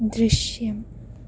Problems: low volume